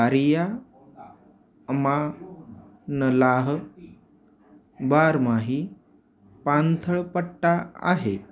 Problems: none marked